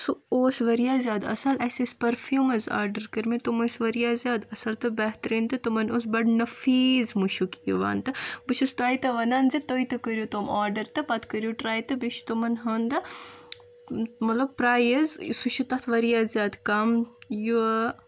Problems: constant background noise